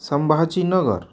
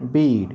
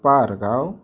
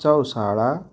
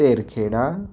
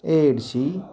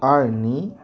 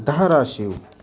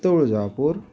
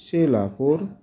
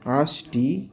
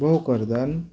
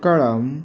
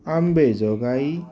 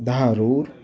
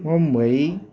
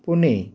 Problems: none marked